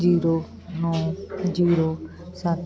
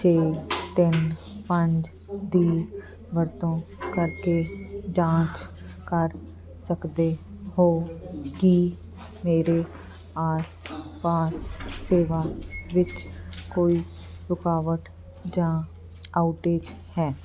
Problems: constant background noise